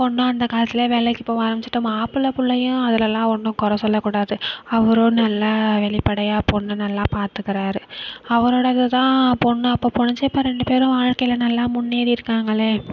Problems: none marked